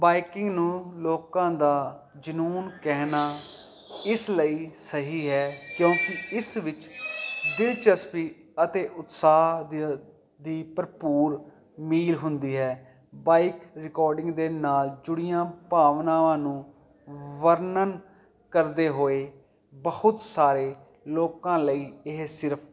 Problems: none marked